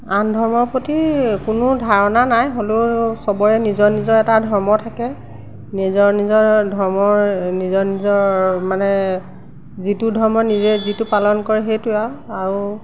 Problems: background sounds at intervals